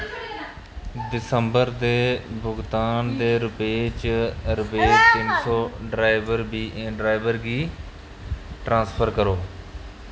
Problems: background sounds at intervals